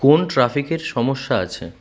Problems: constant background noise